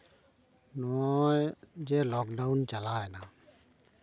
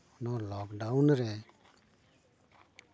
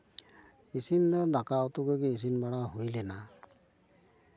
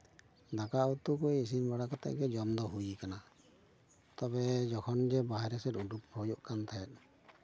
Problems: none marked